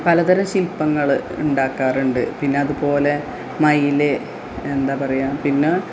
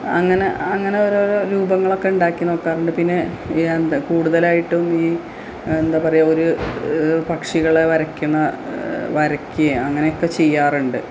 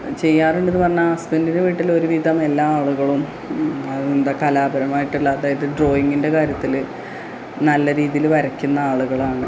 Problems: low volume